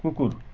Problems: constant background noise